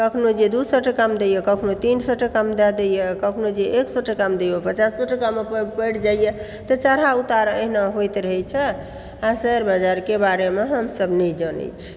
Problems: background sounds at intervals